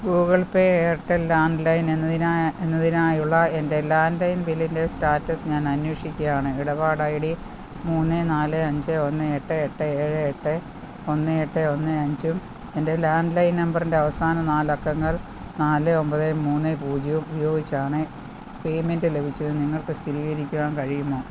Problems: constant background noise, low volume